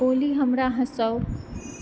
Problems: background sounds at intervals